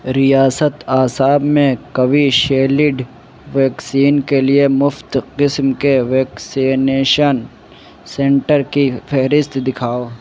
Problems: constant background noise